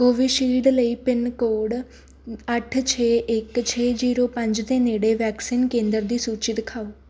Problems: background sounds at intervals